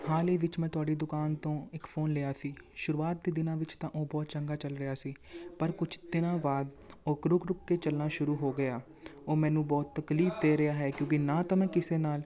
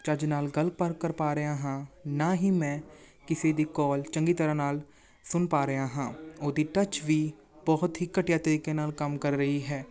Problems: background conversations at intervals